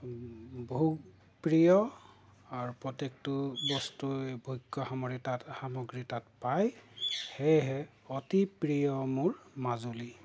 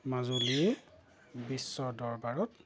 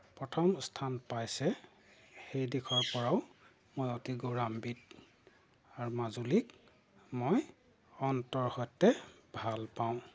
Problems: background sounds at intervals